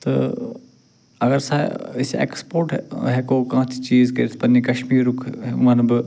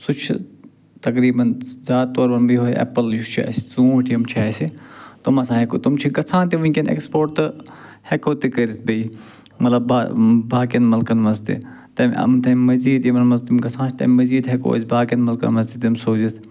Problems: none marked